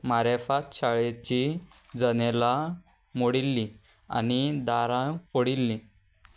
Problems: none marked